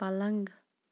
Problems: constant background noise